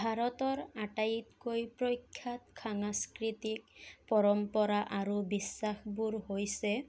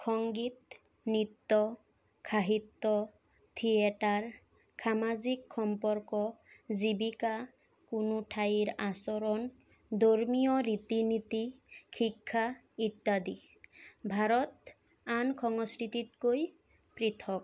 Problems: none marked